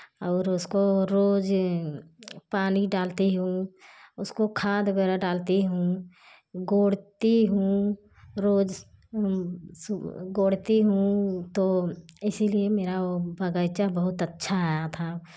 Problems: constant background noise